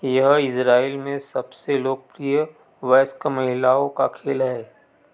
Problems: background sounds at intervals